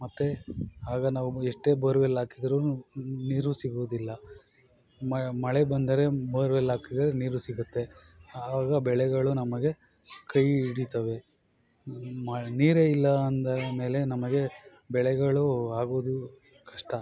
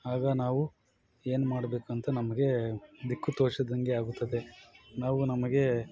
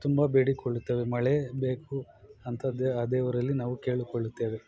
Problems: constant background noise